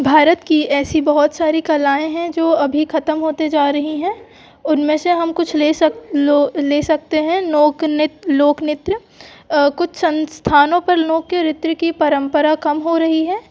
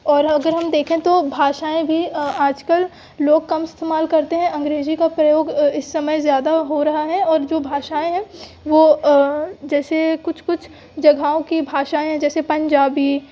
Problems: background sounds at intervals